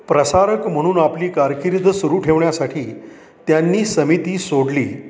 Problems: constant background noise, background conversations at intervals